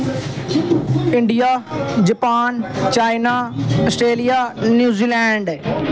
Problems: constant background noise, background conversations at intervals